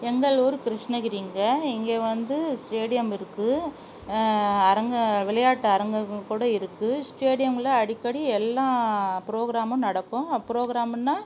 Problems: background sounds at intervals